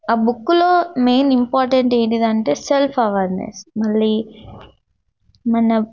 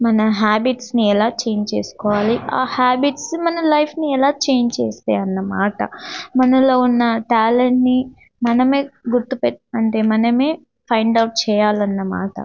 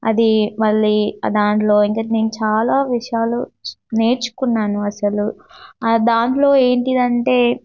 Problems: none marked